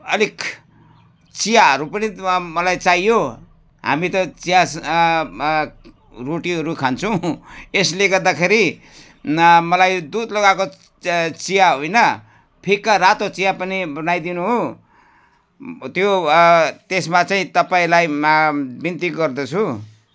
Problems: none marked